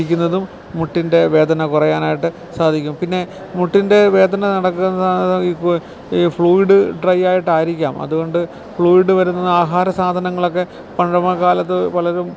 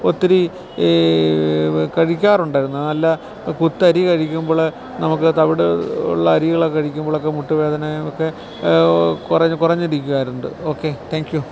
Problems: constant background noise